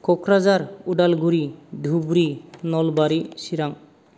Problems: none marked